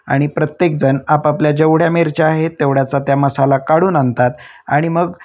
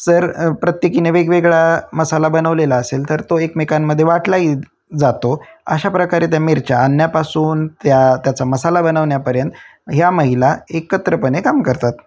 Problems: none marked